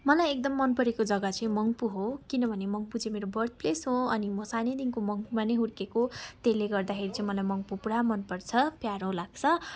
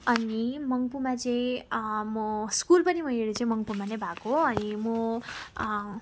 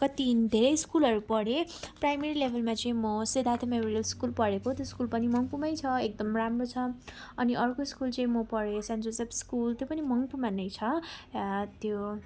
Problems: background sounds at intervals, background conversations at intervals